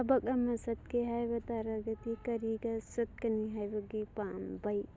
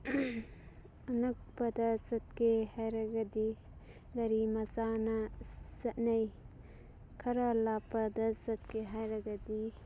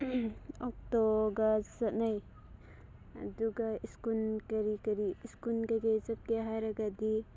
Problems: constant background noise, background conversations at intervals